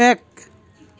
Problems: background sounds at intervals